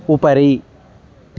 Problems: constant background noise